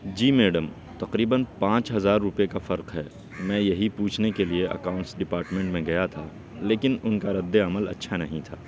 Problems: constant background noise, background conversations at intervals, low volume